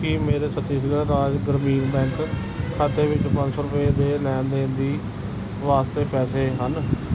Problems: background sounds at intervals